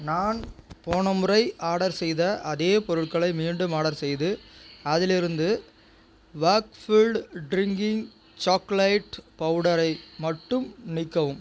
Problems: none marked